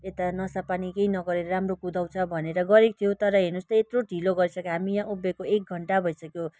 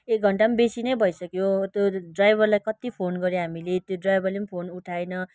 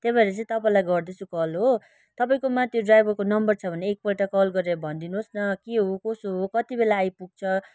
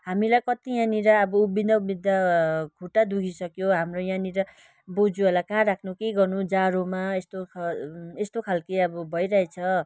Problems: continuous background conversations